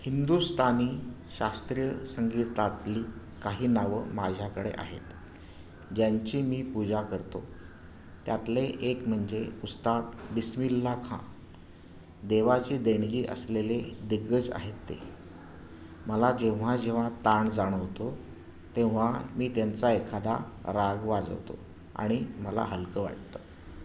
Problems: background sounds at intervals